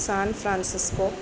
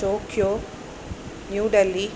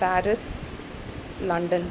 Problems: constant background noise